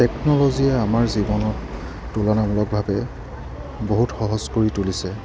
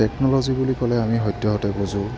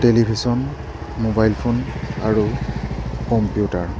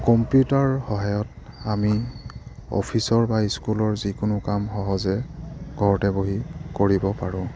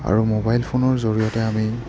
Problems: background sounds at intervals